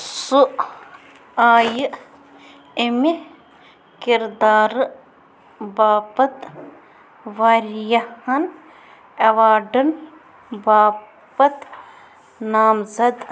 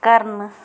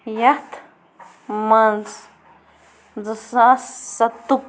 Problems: constant background noise